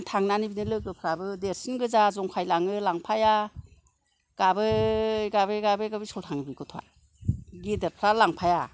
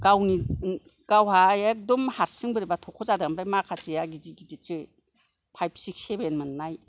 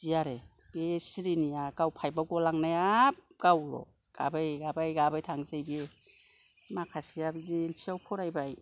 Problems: none marked